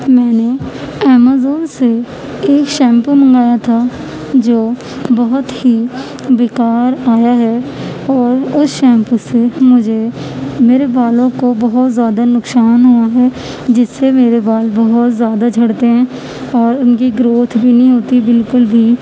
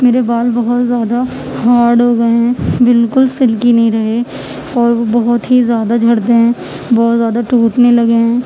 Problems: constant background noise